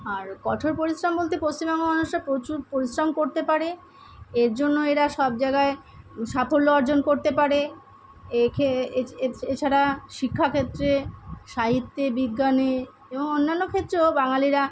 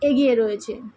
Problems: constant background noise